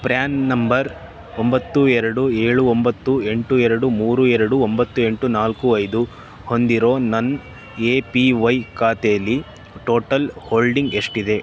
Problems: constant background noise